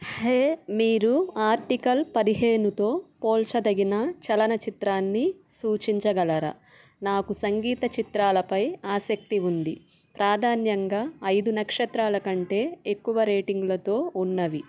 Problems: background sounds at intervals